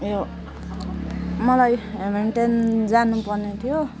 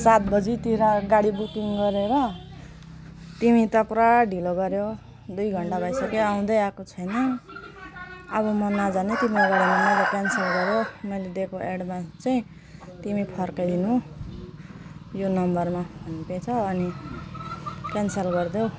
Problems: background sounds at intervals